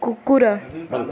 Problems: continuous background conversations